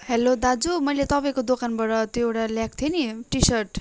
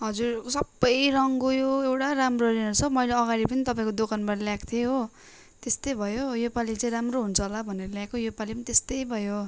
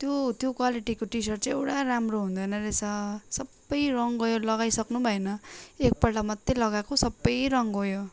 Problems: none marked